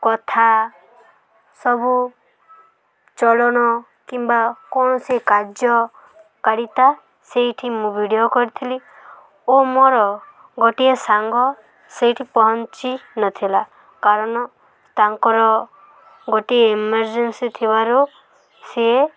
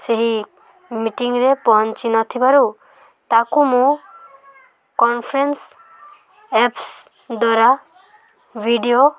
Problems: constant background noise